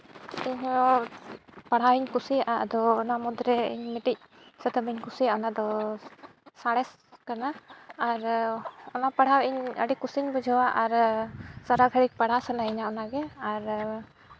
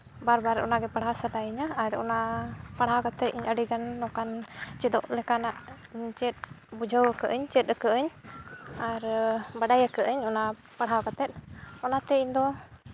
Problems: none marked